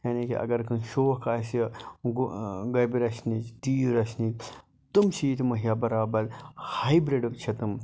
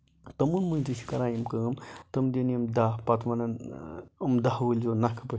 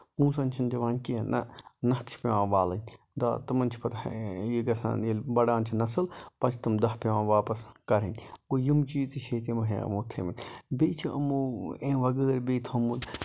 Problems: low volume